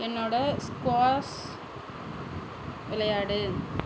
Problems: constant background noise